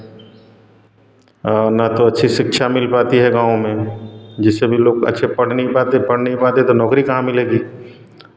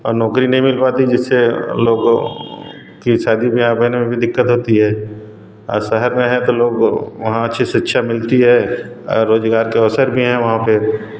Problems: none marked